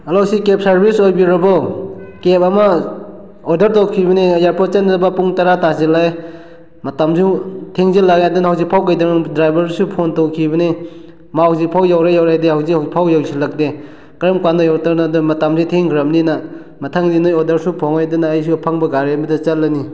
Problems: none marked